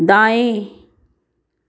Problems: background sounds at intervals